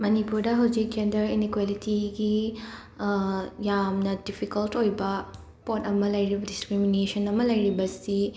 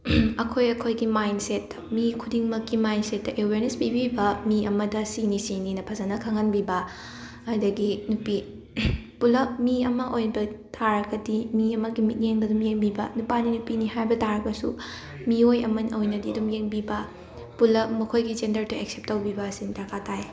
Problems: background sounds at intervals, continuous background conversations